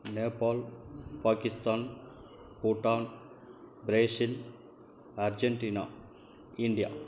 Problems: low volume